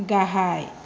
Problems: constant background noise